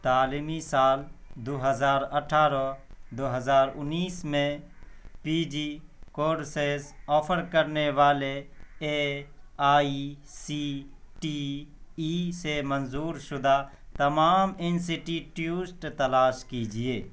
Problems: background sounds at intervals, background conversations at intervals